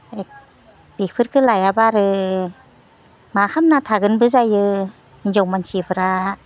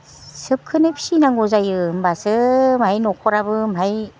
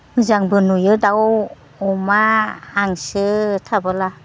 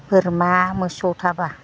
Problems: none marked